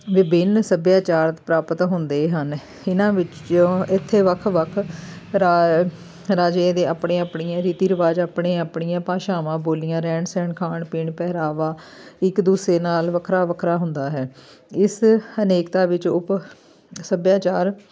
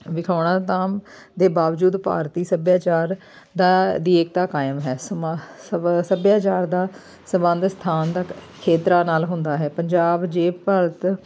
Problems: none marked